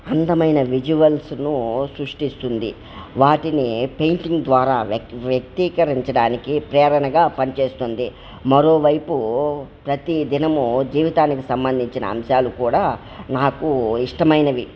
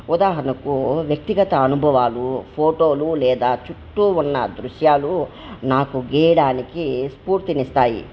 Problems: none marked